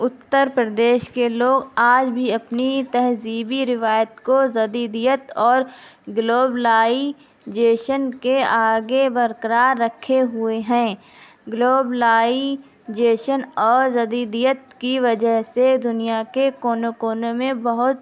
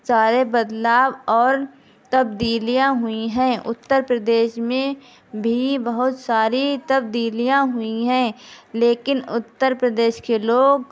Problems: constant background noise